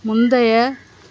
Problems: background sounds at intervals